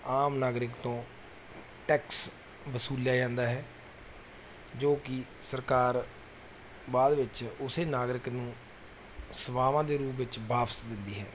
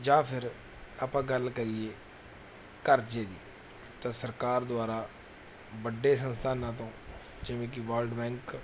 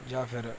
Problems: background sounds at intervals